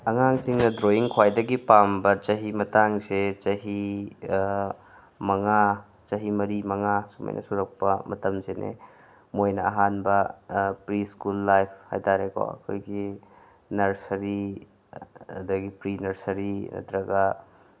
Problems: background sounds at intervals